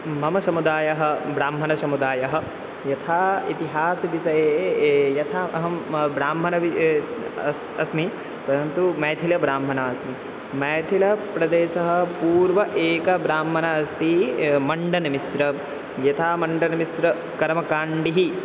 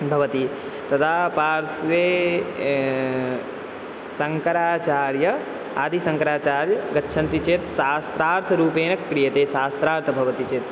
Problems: constant background noise